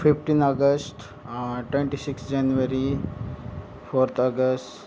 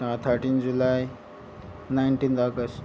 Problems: background sounds at intervals